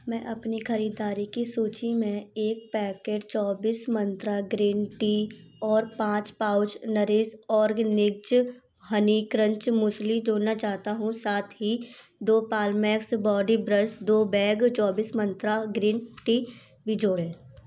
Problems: background sounds at intervals